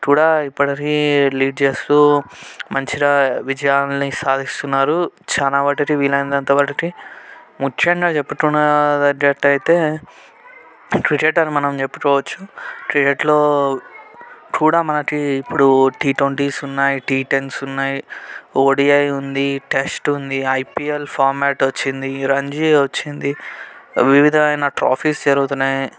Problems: background sounds at intervals